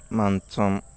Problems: constant background noise